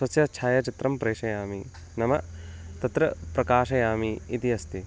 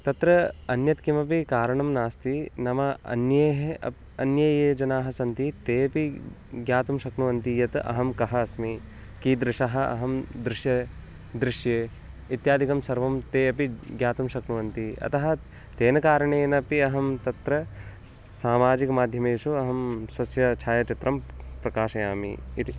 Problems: constant background noise